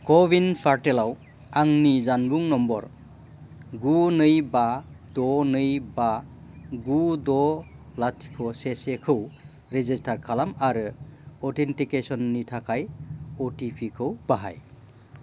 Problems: constant background noise